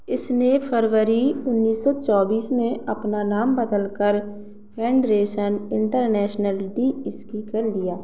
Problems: background sounds at intervals